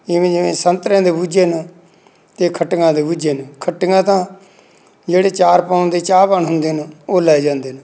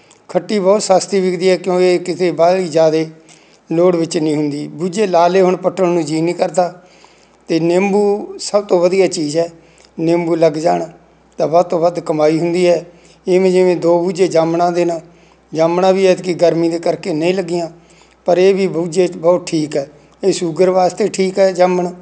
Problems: none marked